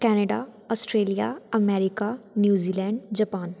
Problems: none marked